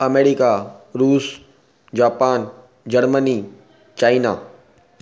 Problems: none marked